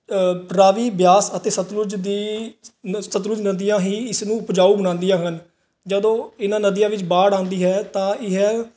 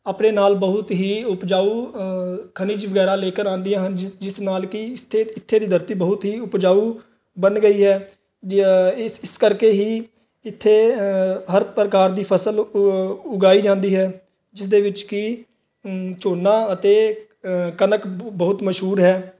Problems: background sounds at intervals